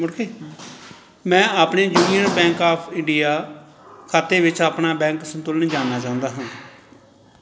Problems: background conversations at intervals